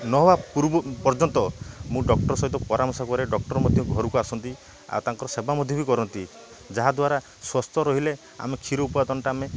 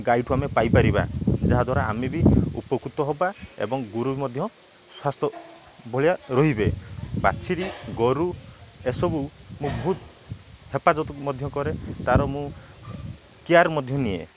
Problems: none marked